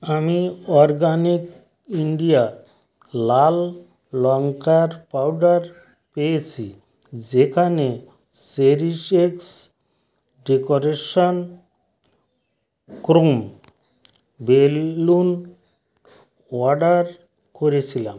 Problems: constant background noise